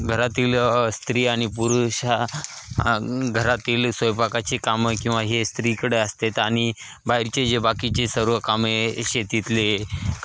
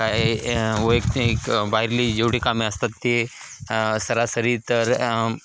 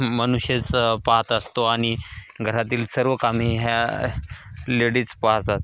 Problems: constant background noise